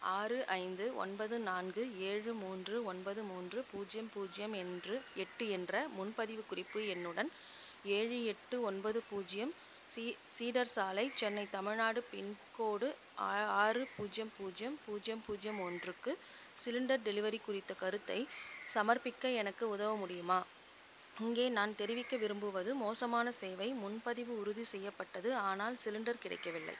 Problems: constant background noise, low volume